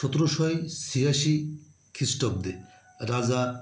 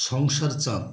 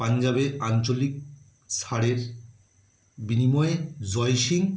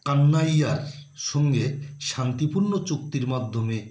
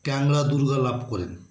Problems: none marked